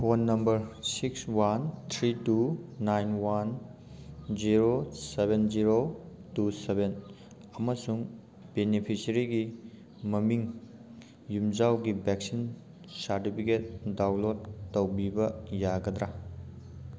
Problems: none marked